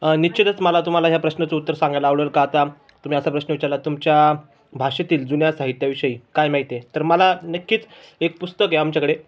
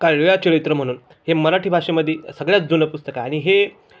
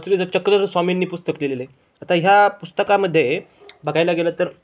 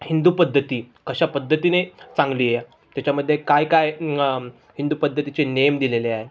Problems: background sounds at intervals, background conversations at intervals